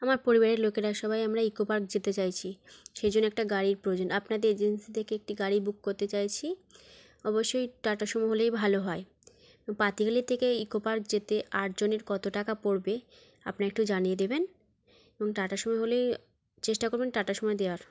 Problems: constant background noise